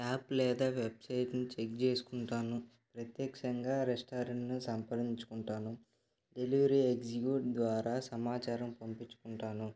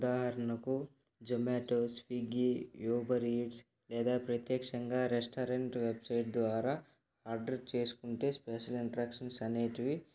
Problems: none marked